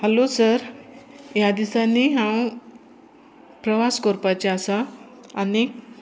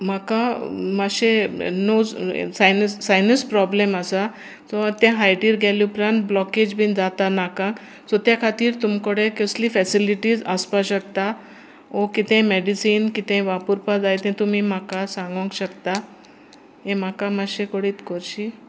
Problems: constant background noise